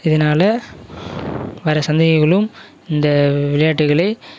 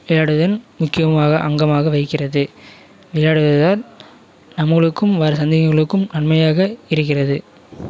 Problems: constant background noise, continuous background conversations